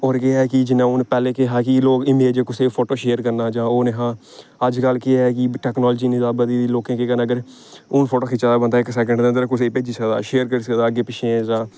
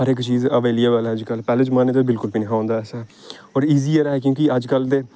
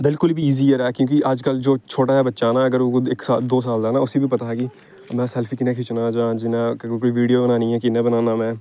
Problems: none marked